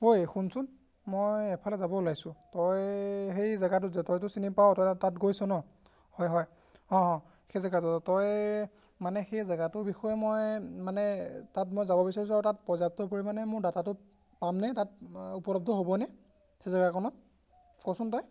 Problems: none marked